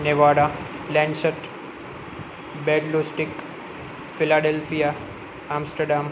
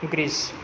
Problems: constant background noise